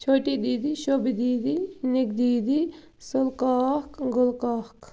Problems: constant background noise